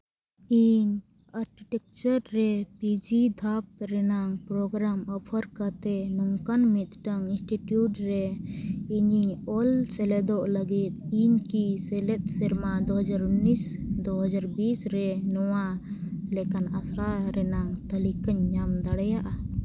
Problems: none marked